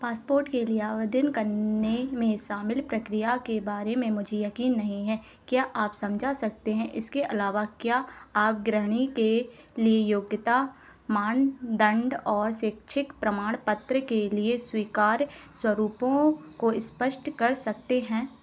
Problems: constant background noise